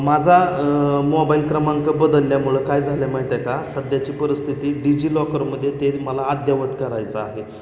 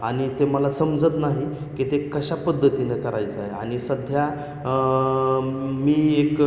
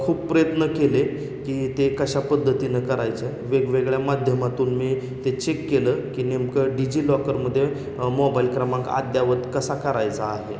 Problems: constant background noise, echo